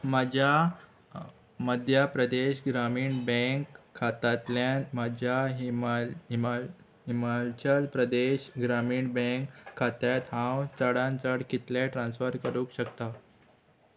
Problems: constant background noise